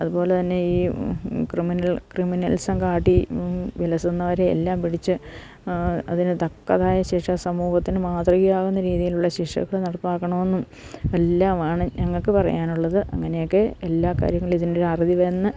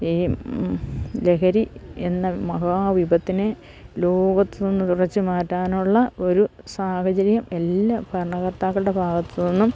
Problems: low volume